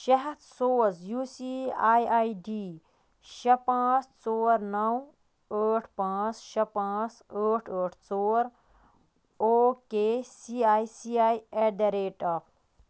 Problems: none marked